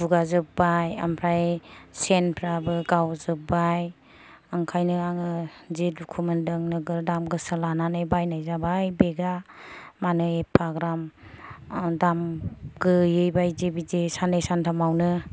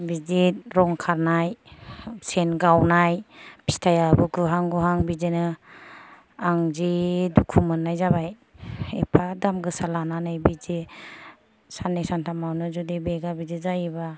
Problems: low volume